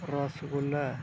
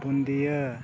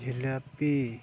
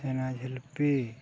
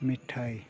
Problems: constant background noise